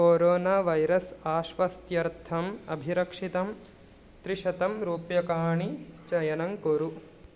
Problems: none marked